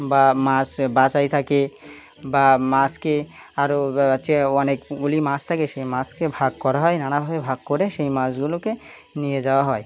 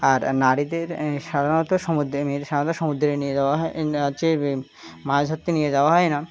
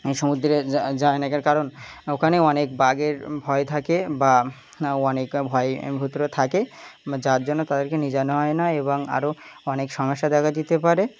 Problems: constant background noise